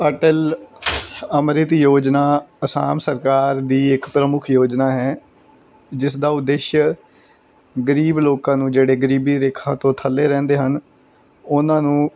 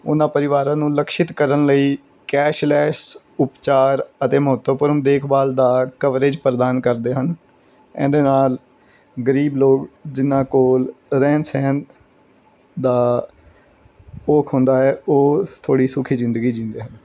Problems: background sounds at intervals